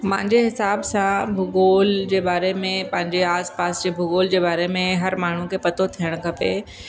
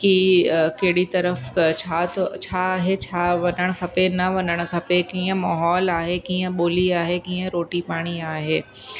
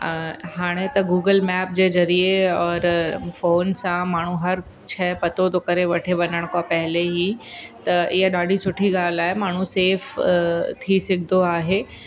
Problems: constant background noise, echo, low volume